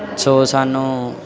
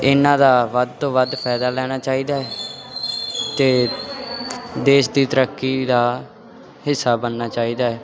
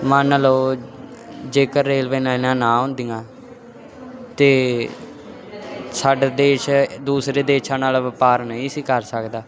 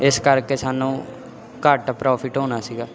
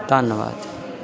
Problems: background conversations at intervals